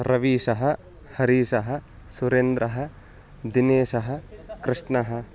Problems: background conversations at intervals